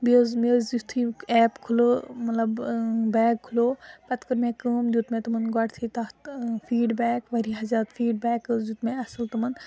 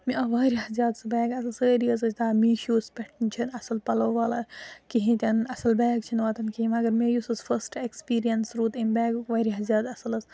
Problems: none marked